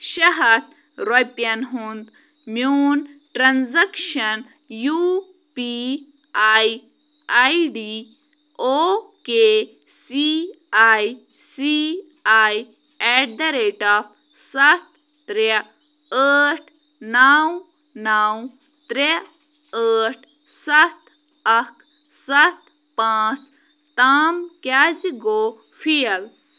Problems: none marked